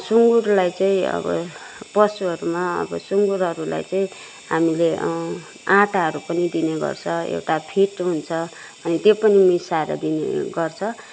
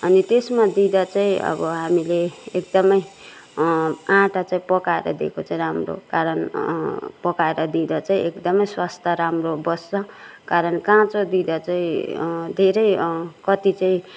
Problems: constant background noise